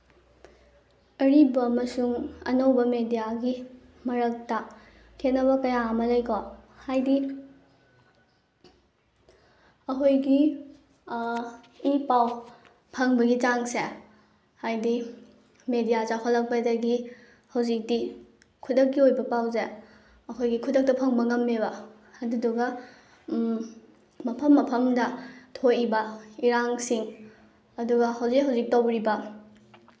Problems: background sounds at intervals